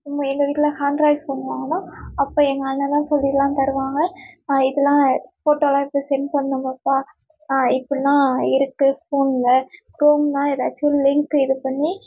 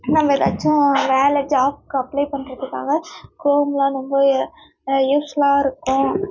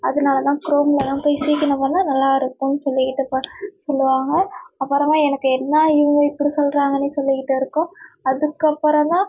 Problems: none marked